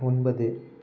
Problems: none marked